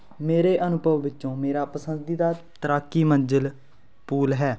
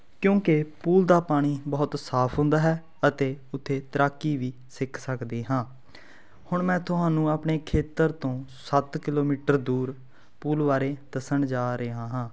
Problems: none marked